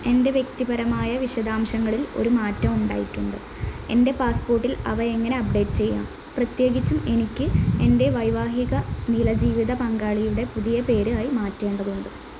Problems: constant background noise